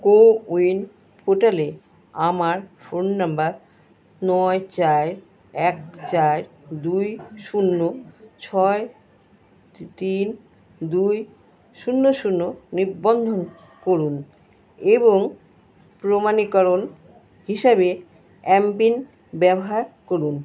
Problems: constant background noise